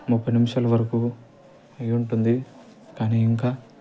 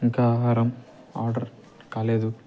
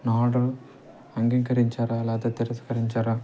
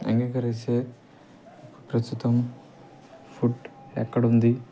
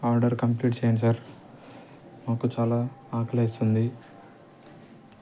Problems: constant background noise